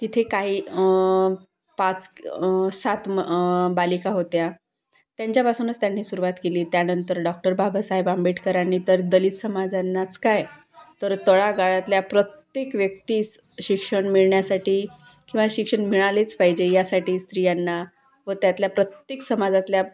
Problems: none marked